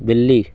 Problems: constant background noise